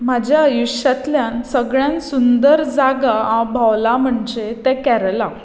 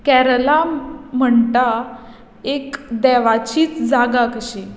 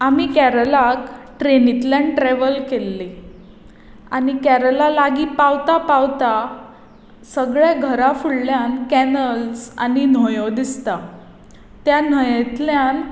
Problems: none marked